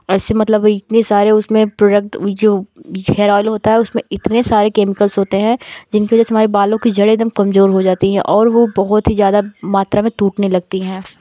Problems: background sounds at intervals, background conversations at intervals